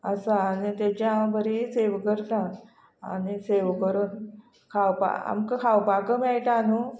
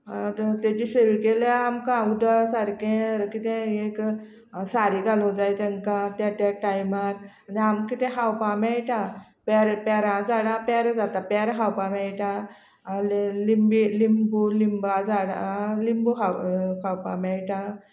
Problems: constant background noise